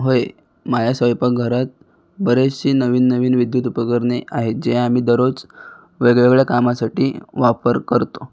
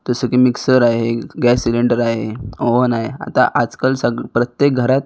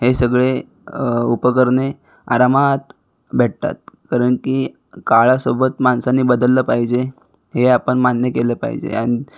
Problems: background sounds at intervals